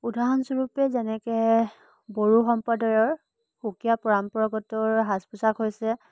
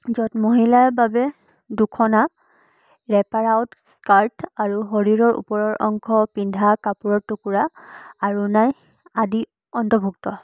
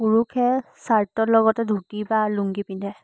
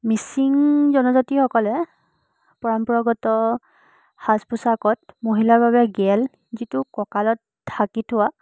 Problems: background sounds at intervals